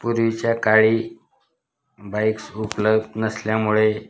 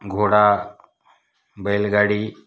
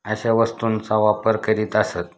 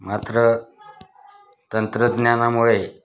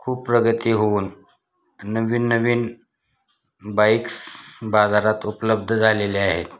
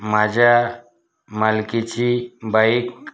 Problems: none marked